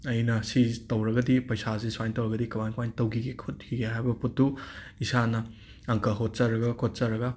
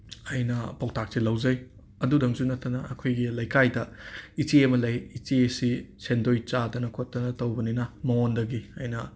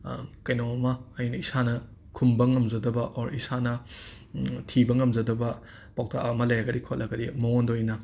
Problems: background sounds at intervals